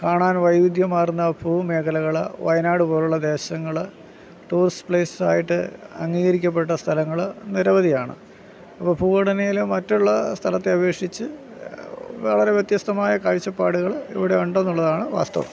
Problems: background sounds at intervals